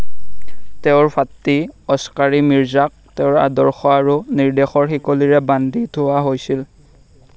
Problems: constant background noise